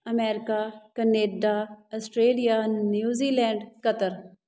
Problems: none marked